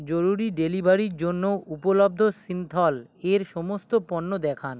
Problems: background sounds at intervals